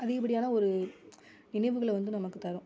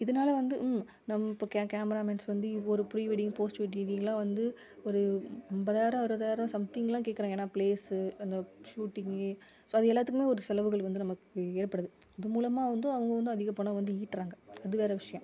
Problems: background conversations at intervals